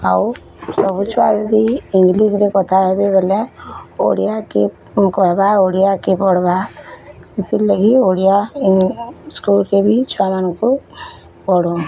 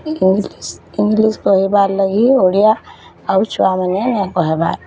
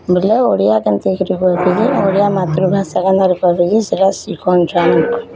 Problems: constant background noise, continuous background conversations